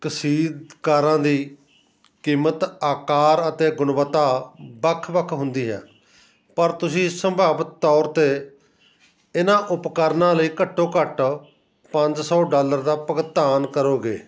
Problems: none marked